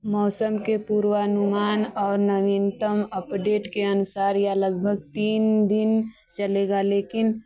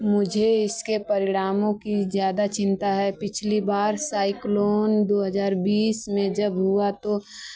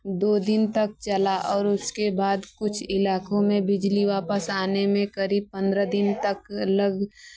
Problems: none marked